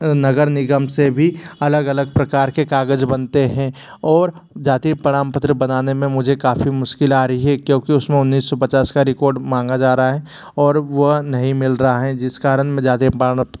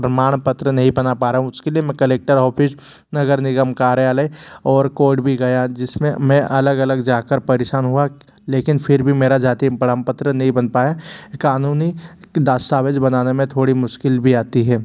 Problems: constant background noise